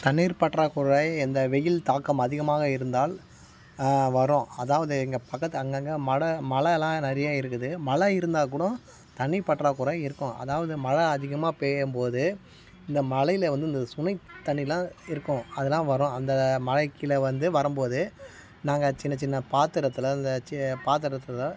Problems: none marked